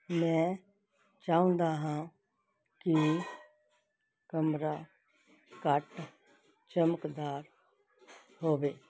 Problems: background sounds at intervals